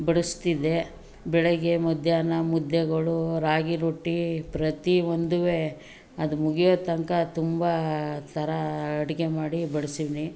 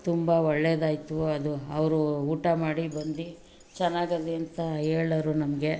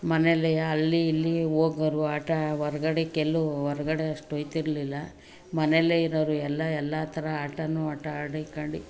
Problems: background sounds at intervals